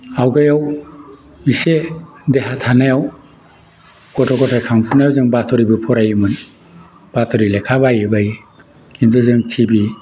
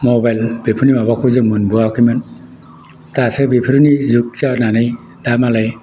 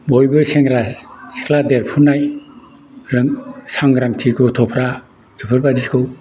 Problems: none marked